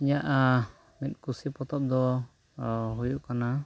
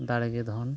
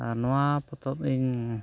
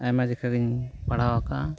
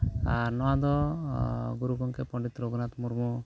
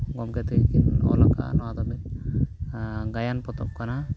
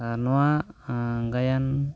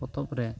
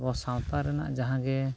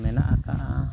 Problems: none marked